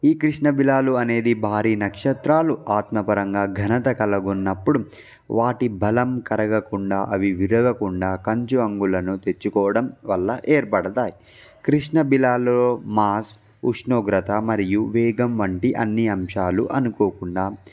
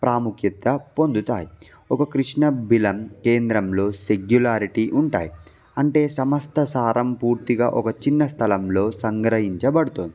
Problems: background sounds at intervals